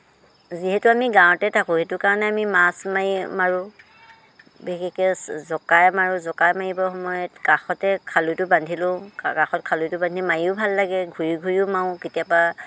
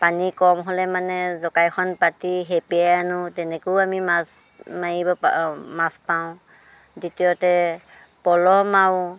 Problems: background sounds at intervals